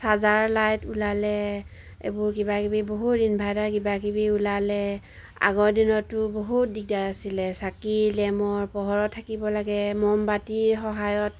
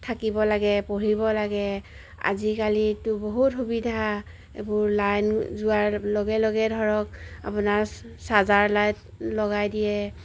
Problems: none marked